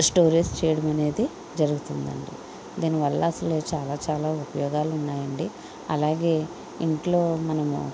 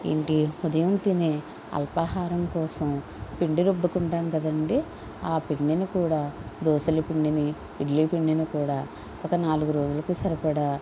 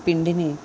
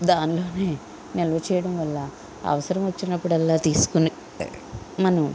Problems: none marked